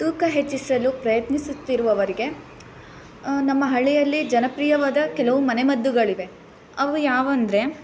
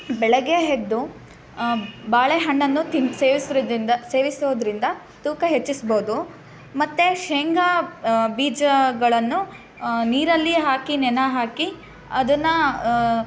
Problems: background sounds at intervals